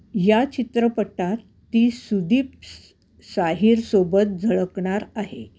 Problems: background sounds at intervals